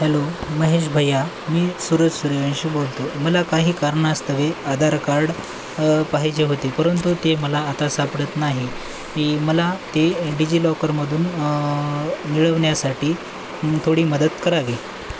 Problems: constant background noise